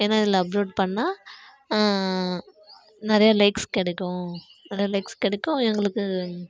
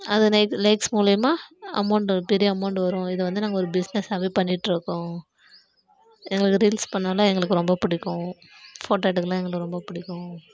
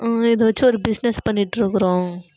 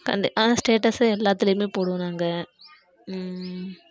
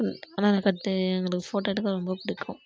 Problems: background sounds at intervals